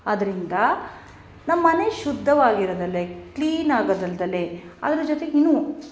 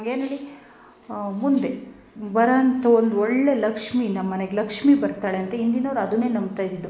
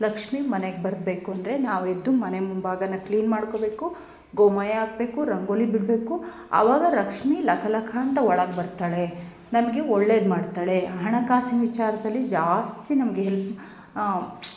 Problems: background sounds at intervals, background conversations at intervals